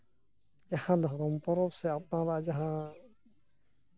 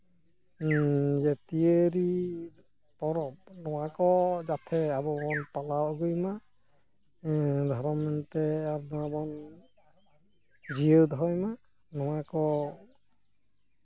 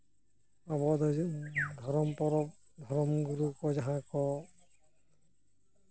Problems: background sounds at intervals, low volume